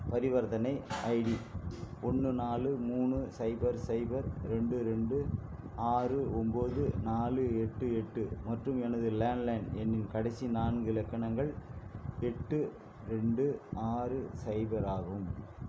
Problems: constant background noise